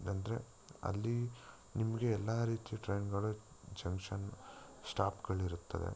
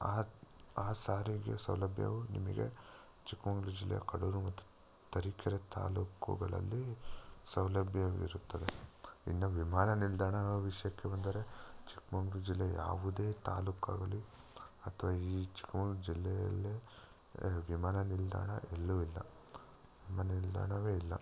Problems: none marked